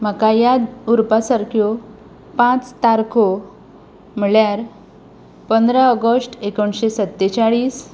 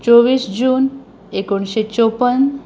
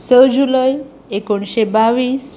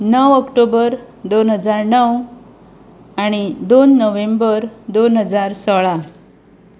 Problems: background sounds at intervals